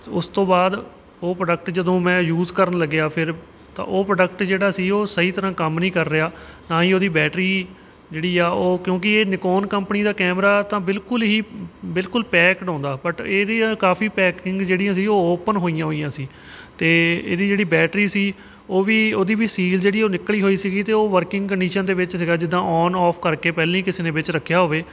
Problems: background sounds at intervals